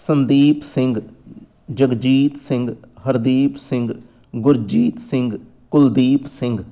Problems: none marked